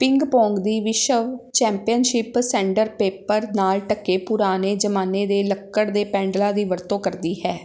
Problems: none marked